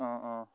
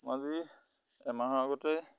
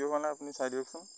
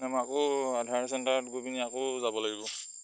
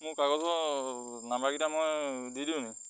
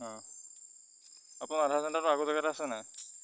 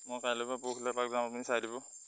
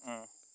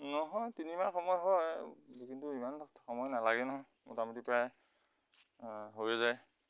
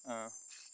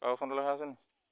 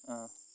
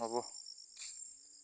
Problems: constant background noise